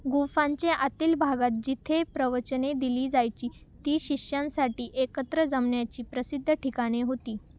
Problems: none marked